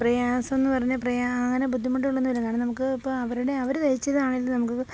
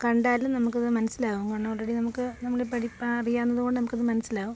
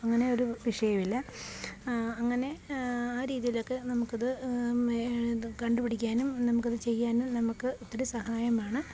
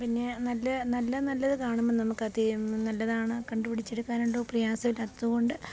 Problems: background sounds at intervals